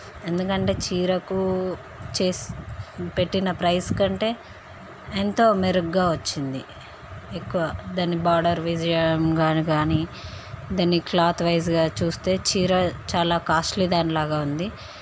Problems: constant background noise